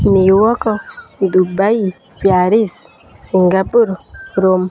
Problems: constant background noise